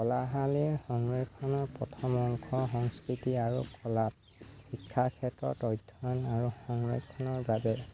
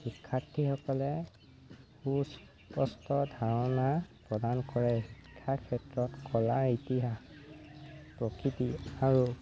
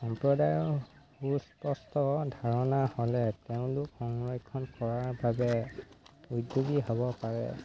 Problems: constant background noise